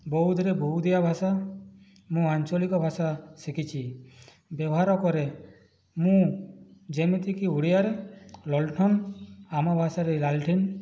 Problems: none marked